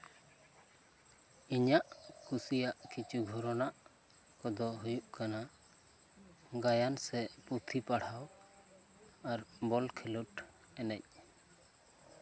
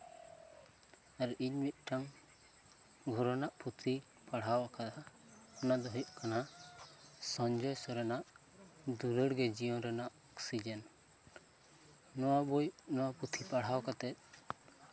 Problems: background conversations at intervals